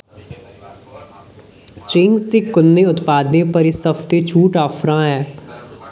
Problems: background sounds at intervals